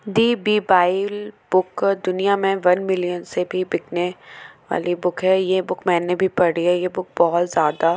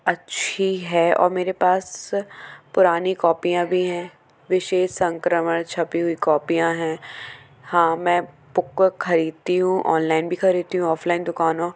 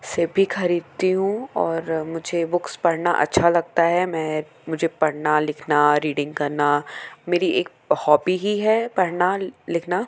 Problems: constant background noise, background conversations at intervals